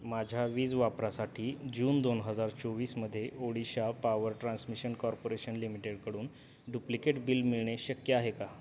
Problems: none marked